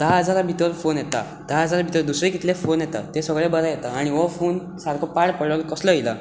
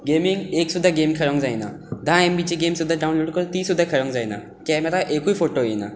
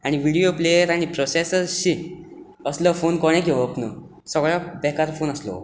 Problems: constant background noise